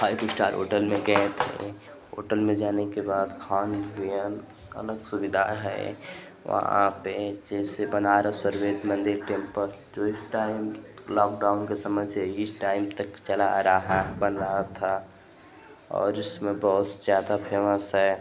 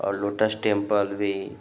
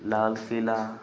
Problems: constant background noise